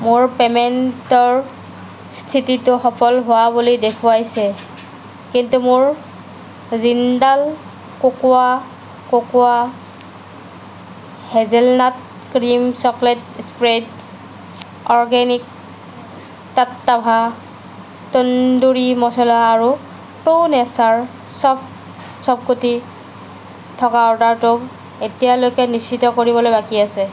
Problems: constant background noise